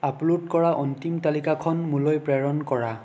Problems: none marked